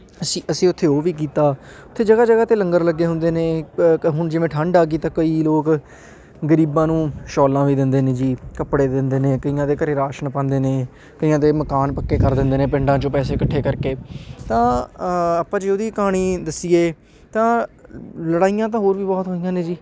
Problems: background sounds at intervals, background conversations at intervals